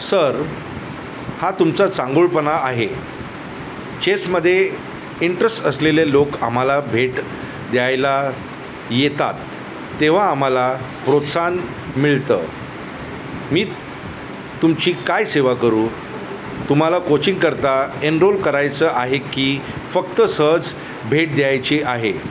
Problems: none marked